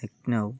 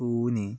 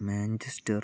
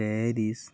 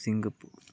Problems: low volume